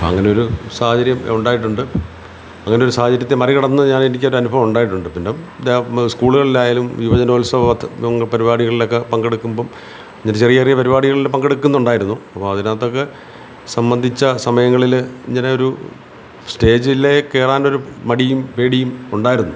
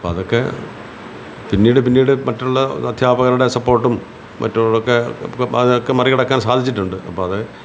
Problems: none marked